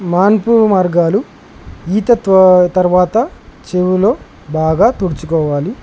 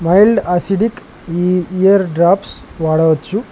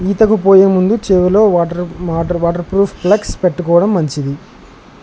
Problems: constant background noise